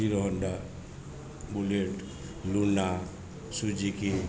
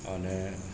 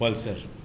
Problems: background sounds at intervals, background conversations at intervals